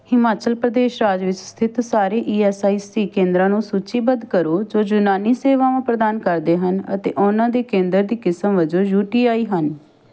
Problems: none marked